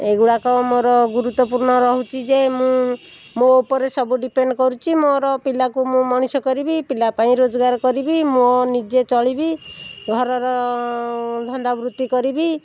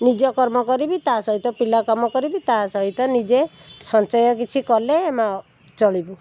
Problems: constant background noise